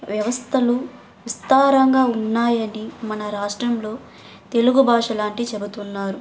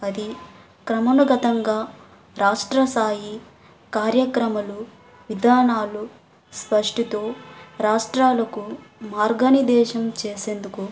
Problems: background sounds at intervals